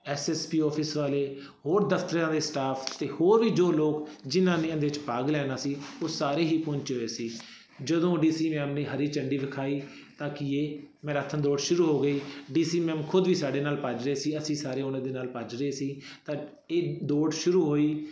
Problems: background sounds at intervals